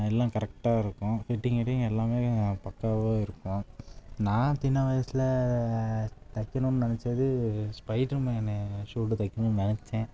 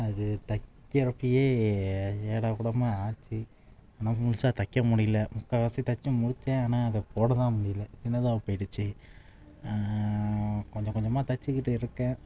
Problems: background sounds at intervals